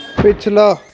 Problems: none marked